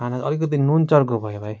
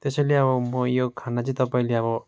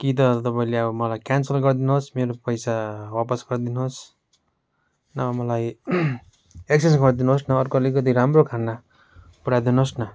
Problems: background sounds at intervals